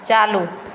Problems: none marked